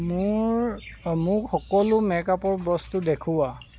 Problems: background sounds at intervals